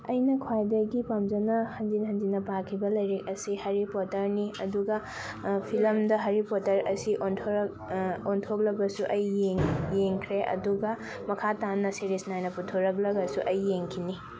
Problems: none marked